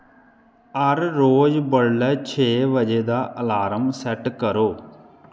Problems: background sounds at intervals, echo